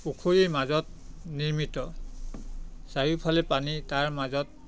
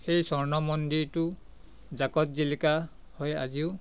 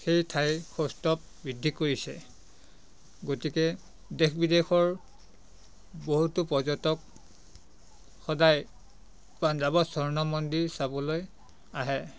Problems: constant background noise, background conversations at intervals